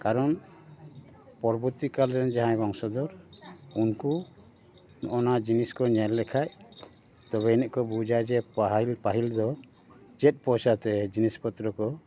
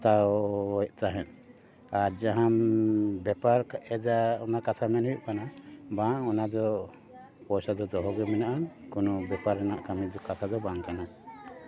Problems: none marked